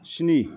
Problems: none marked